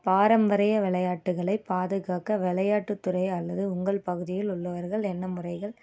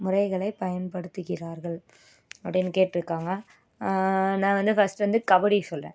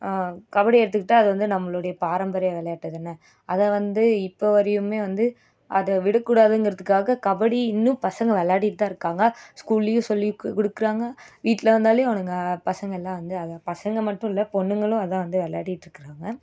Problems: none marked